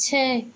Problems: background sounds at intervals